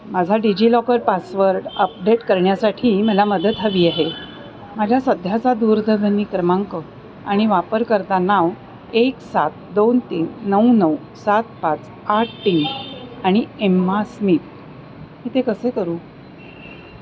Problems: constant background noise, background conversations at intervals